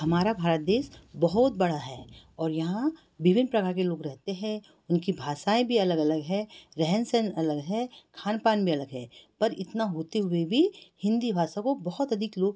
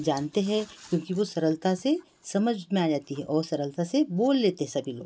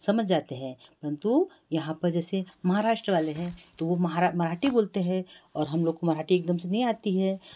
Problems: none marked